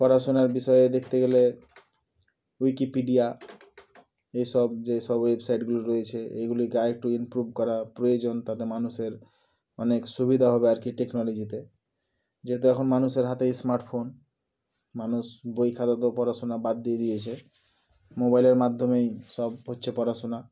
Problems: background sounds at intervals